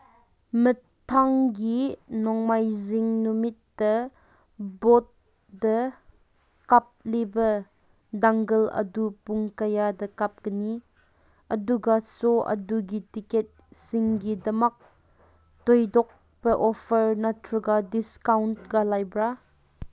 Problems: none marked